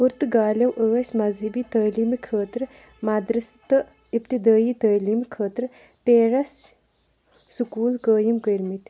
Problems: background sounds at intervals